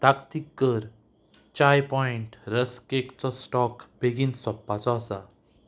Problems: background sounds at intervals